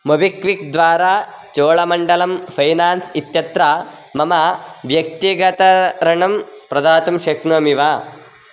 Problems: constant background noise